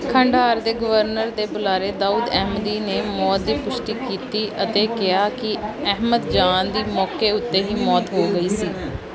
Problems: background sounds at intervals, background conversations at intervals